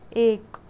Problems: background sounds at intervals